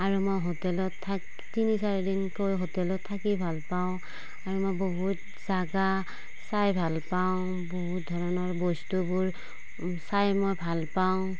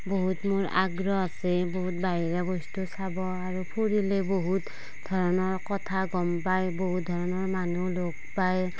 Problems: none marked